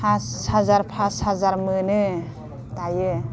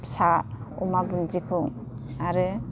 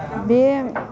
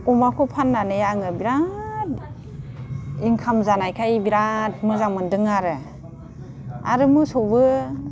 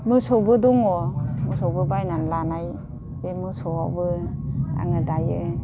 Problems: none marked